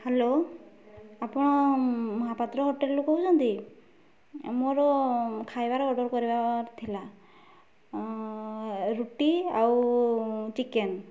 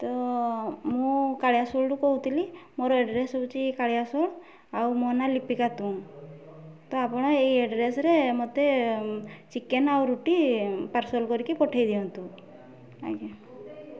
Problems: constant background noise